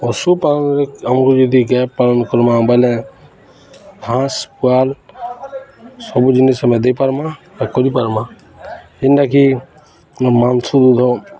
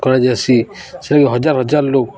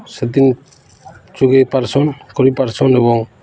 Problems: constant background noise, continuous background conversations